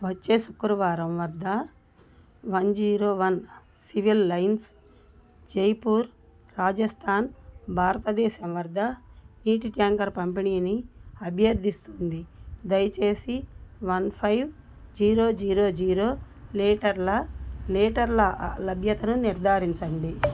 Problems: none marked